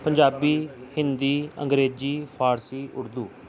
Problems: none marked